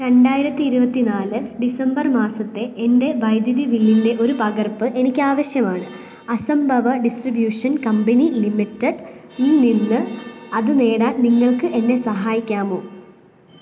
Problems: background sounds at intervals